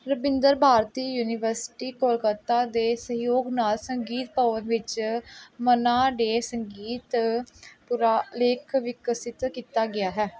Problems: background sounds at intervals